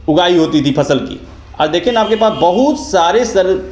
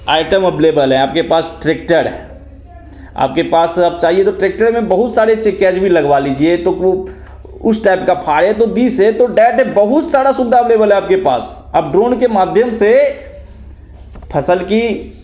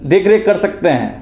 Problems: none marked